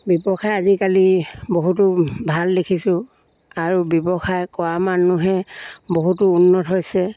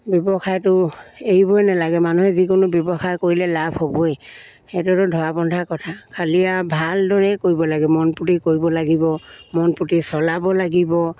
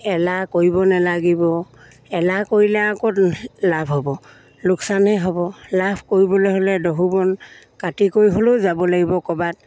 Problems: background sounds at intervals